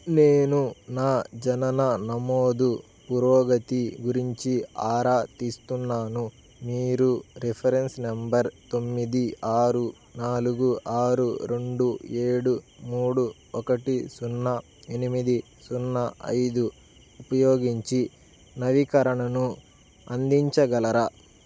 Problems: none marked